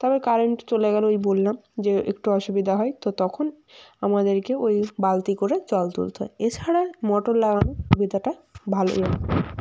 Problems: background sounds at intervals